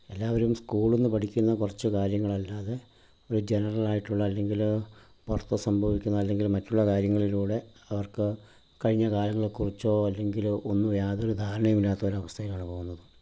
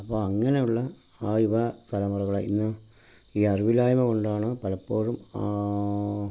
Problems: low volume